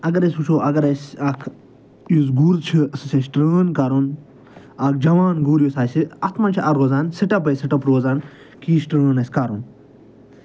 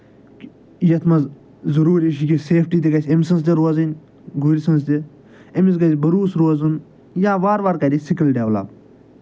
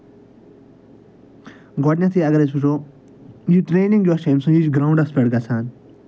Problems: none marked